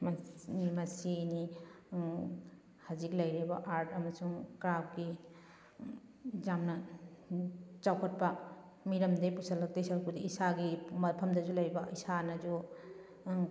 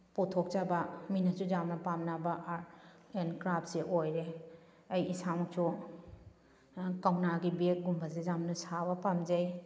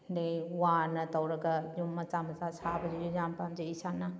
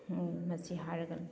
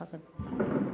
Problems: background sounds at intervals